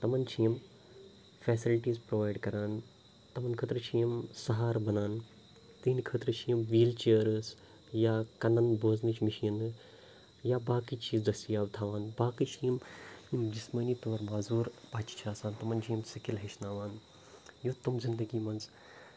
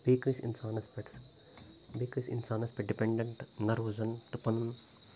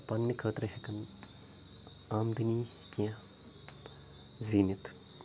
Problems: constant background noise, low volume